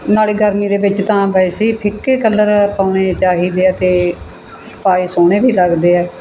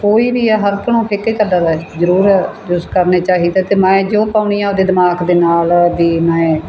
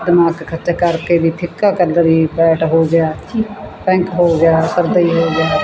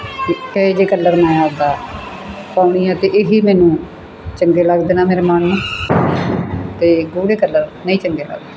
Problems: constant background noise